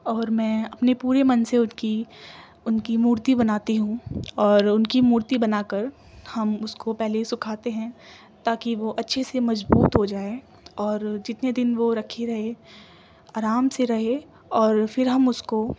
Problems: constant background noise